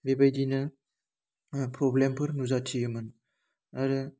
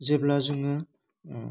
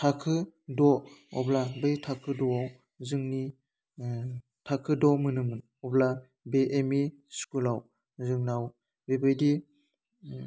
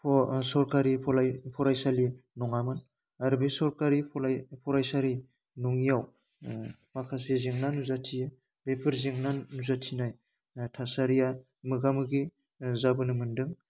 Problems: constant background noise